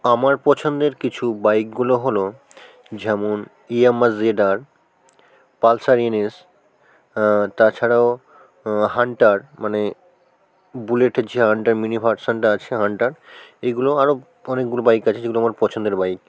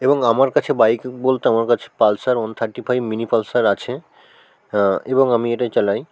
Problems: background sounds at intervals